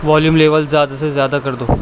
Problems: constant background noise